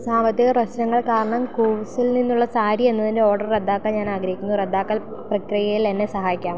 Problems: constant background noise